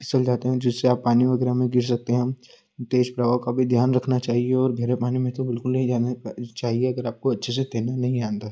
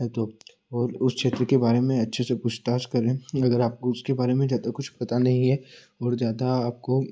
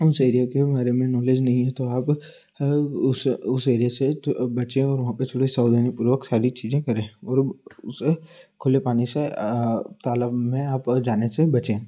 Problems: constant background noise